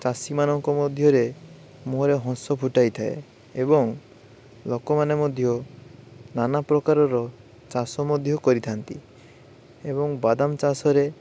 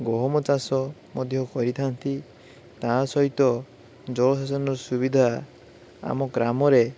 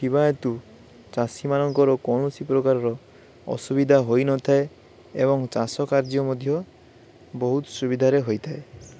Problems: none marked